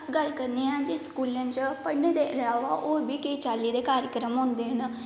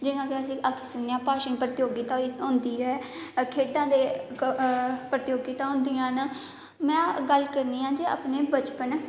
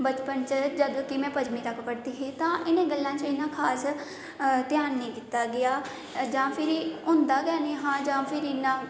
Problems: echo